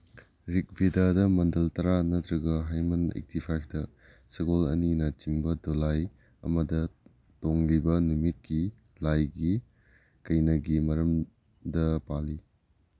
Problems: low volume